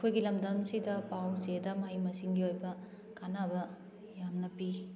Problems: background sounds at intervals